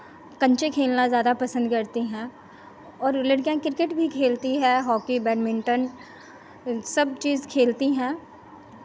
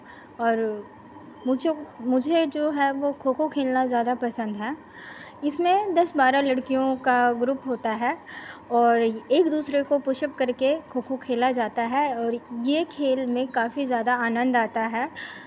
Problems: constant background noise